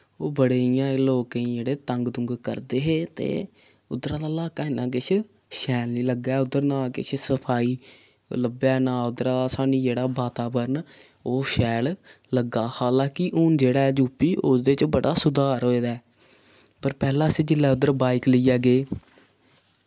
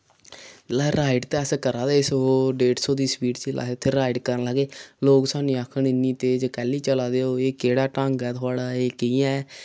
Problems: none marked